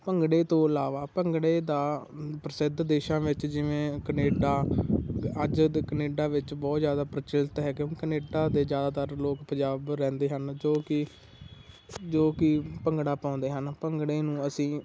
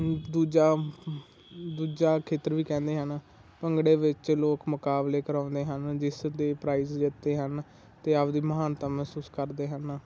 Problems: constant background noise